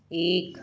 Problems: echo